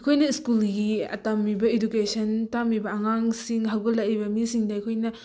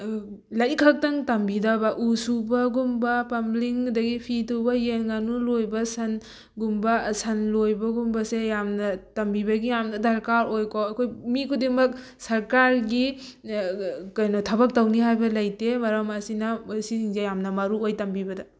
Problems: none marked